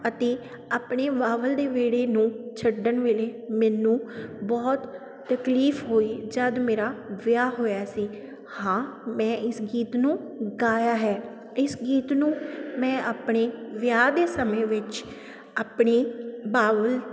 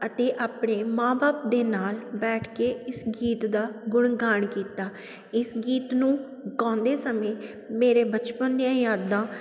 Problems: none marked